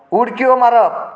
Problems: echo